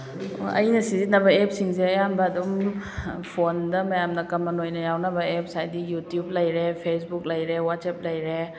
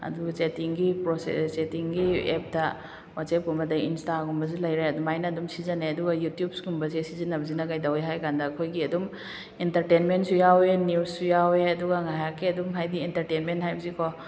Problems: background conversations at intervals